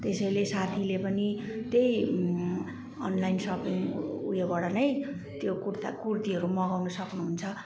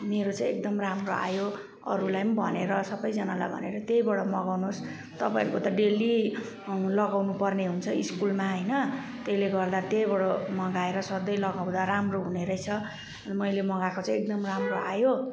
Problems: background sounds at intervals